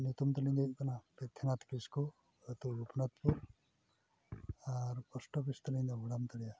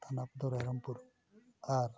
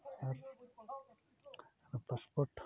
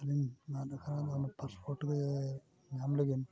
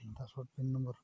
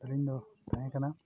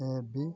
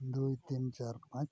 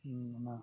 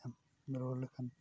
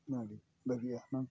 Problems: constant background noise, background conversations at intervals